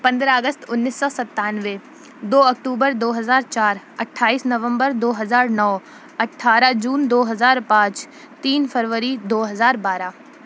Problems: none marked